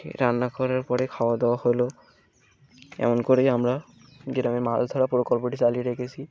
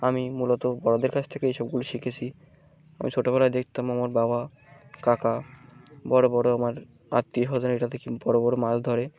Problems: background sounds at intervals